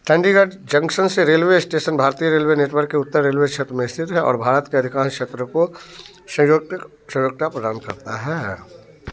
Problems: none marked